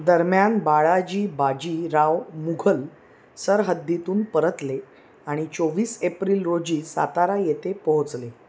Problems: none marked